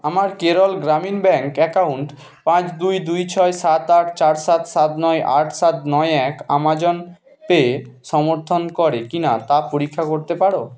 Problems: none marked